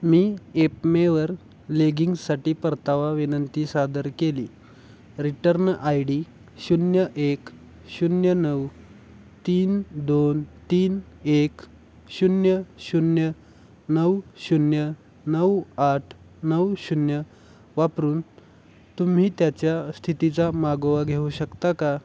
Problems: constant background noise